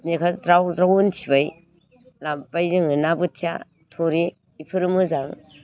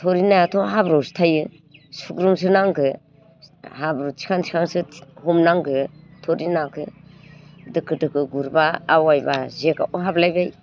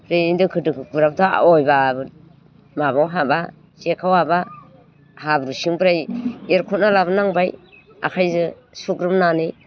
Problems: constant background noise